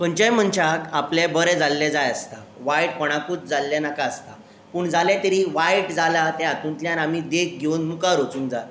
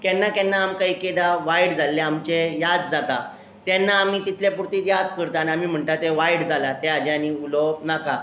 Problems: constant background noise